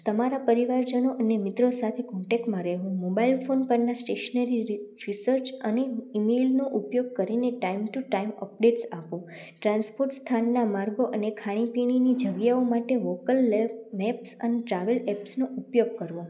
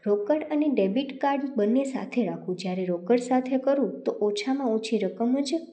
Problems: none marked